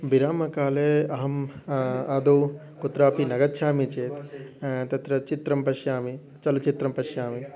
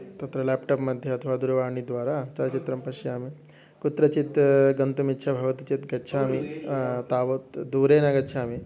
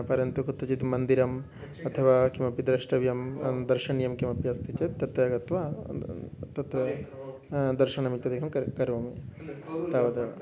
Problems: background sounds at intervals